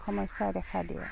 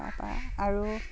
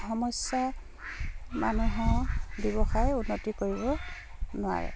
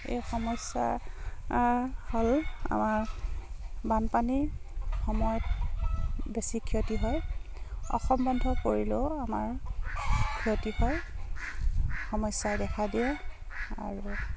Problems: constant background noise